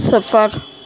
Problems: constant background noise